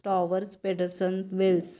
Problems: none marked